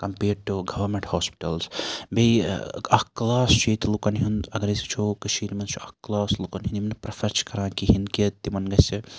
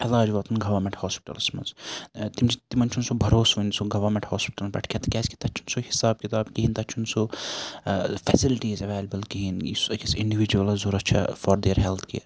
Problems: constant background noise